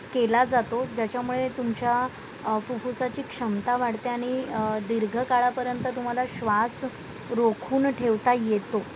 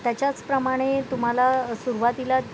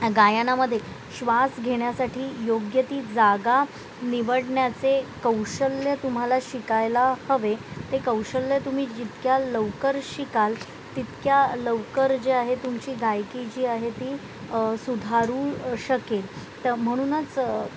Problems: constant background noise, background conversations at intervals